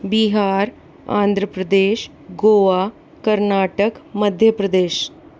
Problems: constant background noise